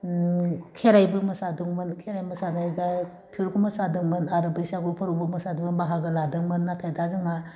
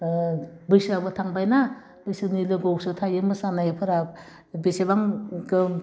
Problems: constant background noise